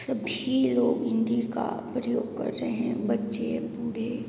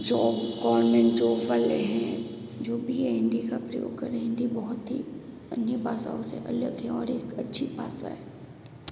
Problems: constant background noise, echo